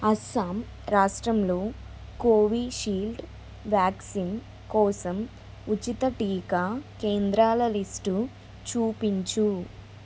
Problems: constant background noise